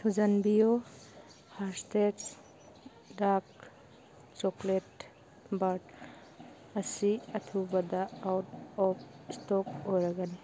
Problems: background sounds at intervals